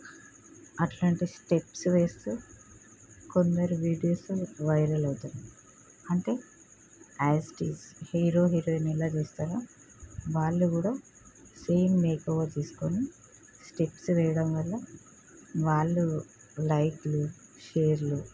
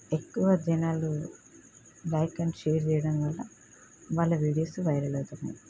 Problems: none marked